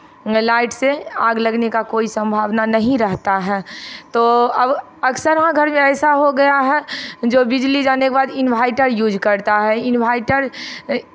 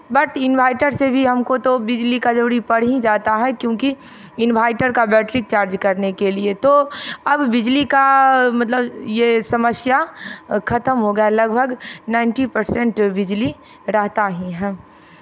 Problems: none marked